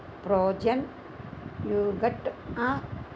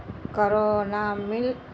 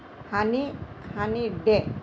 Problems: none marked